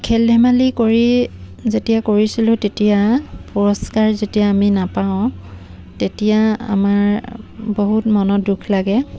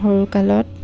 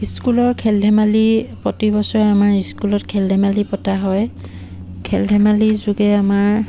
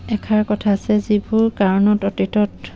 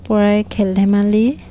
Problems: background sounds at intervals